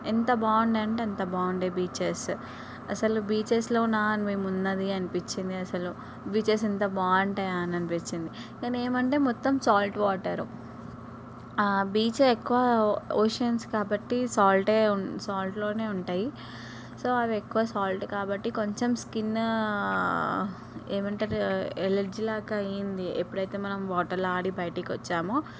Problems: background sounds at intervals